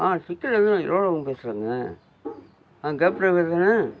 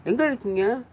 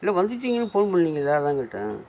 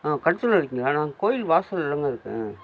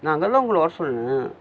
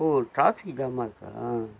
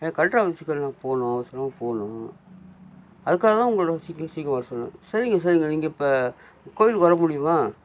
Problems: constant background noise